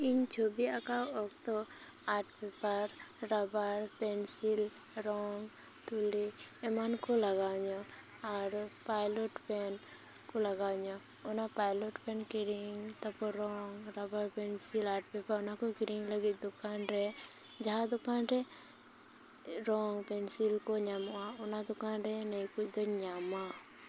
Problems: constant background noise, background conversations at intervals